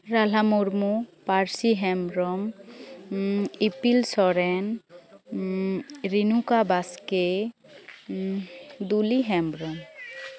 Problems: background sounds at intervals